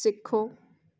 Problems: none marked